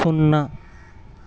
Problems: constant background noise